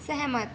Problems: none marked